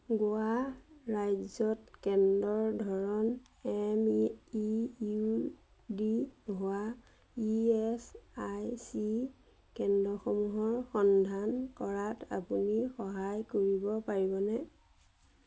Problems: none marked